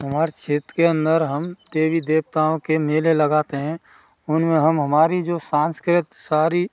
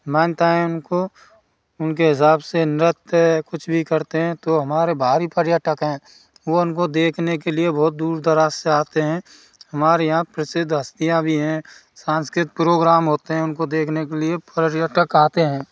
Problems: none marked